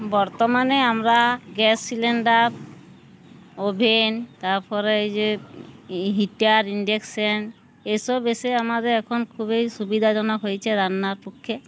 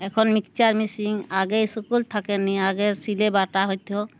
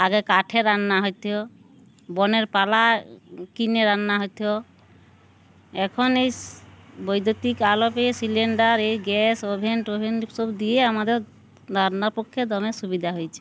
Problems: background sounds at intervals